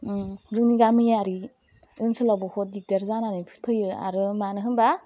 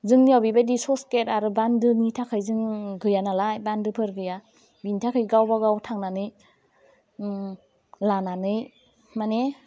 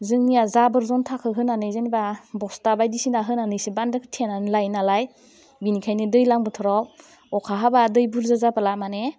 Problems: constant background noise